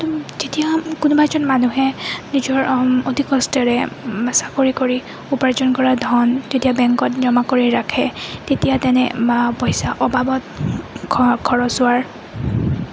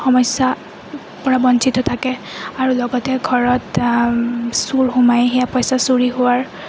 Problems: constant background noise